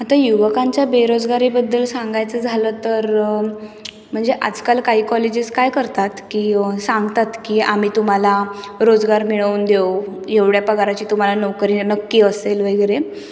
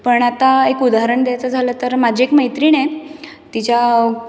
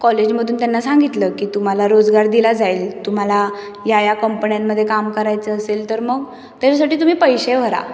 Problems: none marked